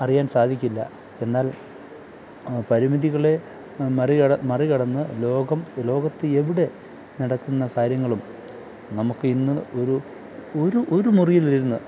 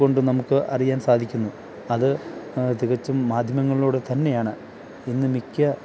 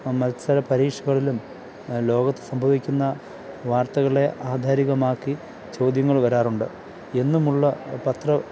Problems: constant background noise